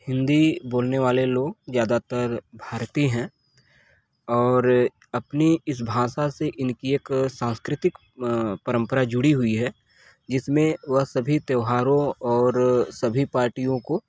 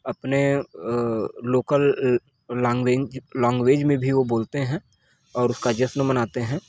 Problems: constant background noise, background conversations at intervals